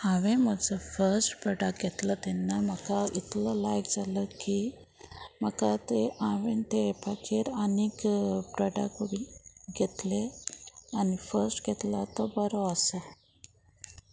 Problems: background sounds at intervals